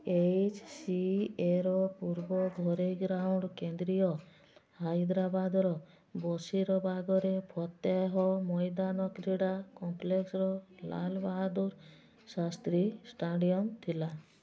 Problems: constant background noise, background conversations at intervals